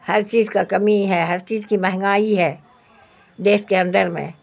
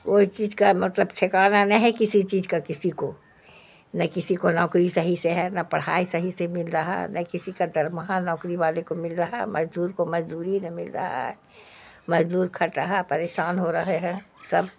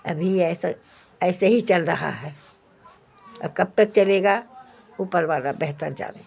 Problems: constant background noise